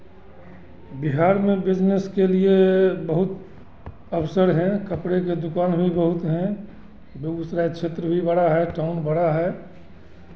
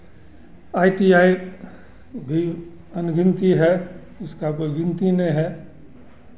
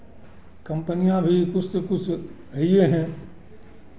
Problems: constant background noise, continuous background conversations